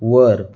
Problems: none marked